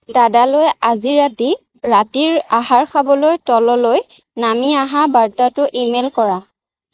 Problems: background sounds at intervals